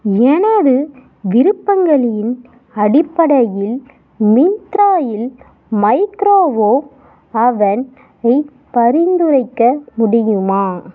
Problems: background sounds at intervals